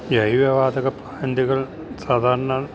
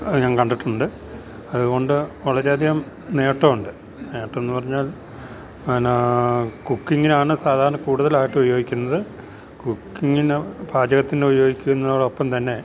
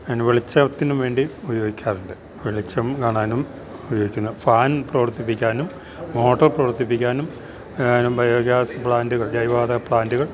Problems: none marked